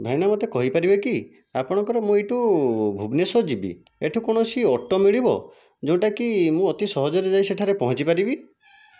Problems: none marked